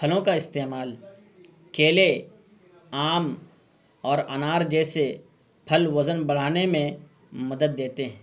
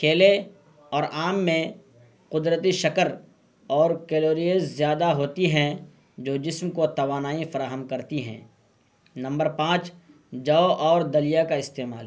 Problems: constant background noise